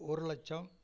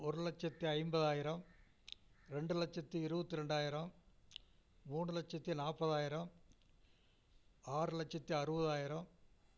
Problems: low volume